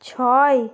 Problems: none marked